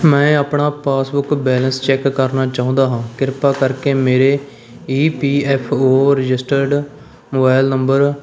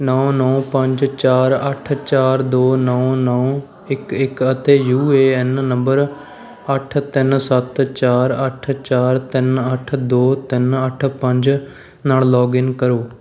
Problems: none marked